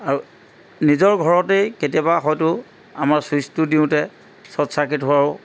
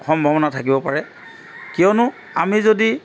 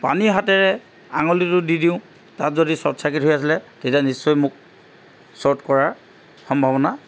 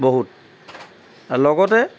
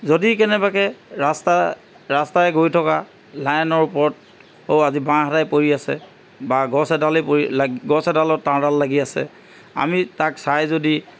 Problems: constant background noise